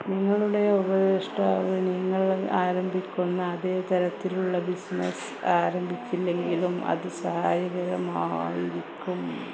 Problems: constant background noise